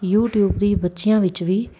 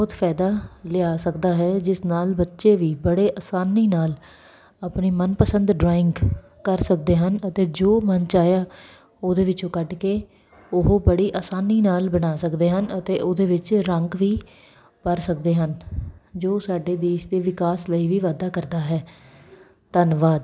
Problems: none marked